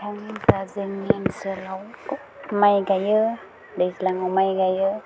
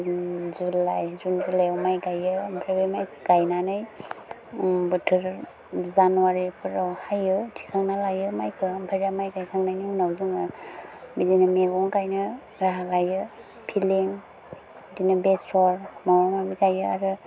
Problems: low volume